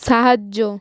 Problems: none marked